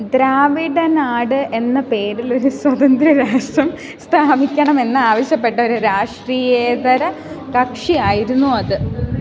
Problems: background conversations at intervals